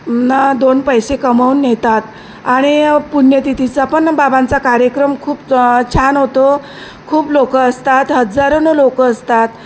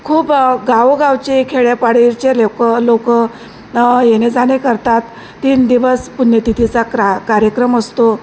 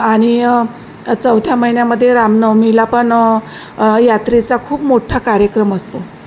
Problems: constant background noise